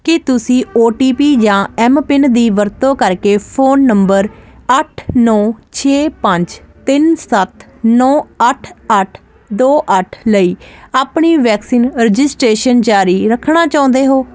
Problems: constant background noise